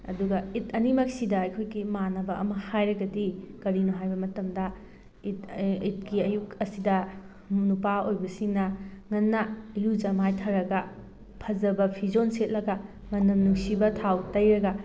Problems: background sounds at intervals